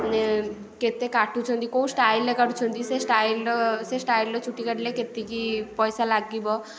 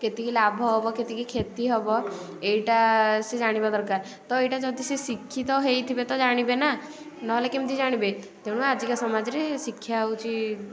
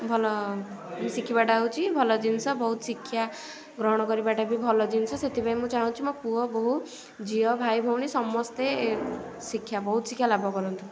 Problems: none marked